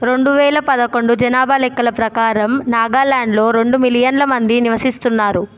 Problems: none marked